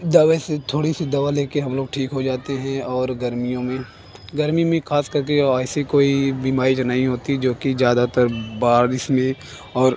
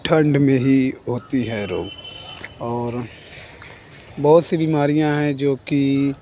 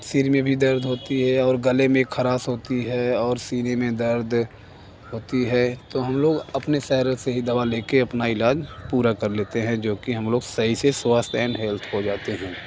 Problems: constant background noise, background conversations at intervals